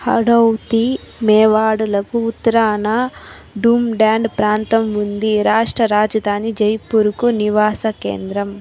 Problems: constant background noise